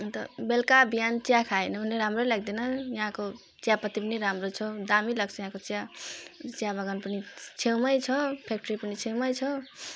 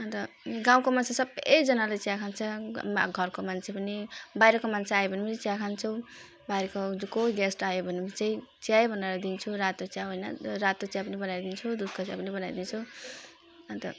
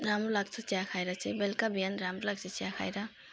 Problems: background sounds at intervals